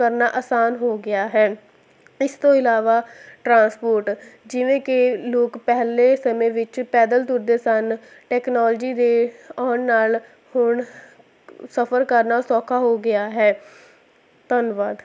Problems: constant background noise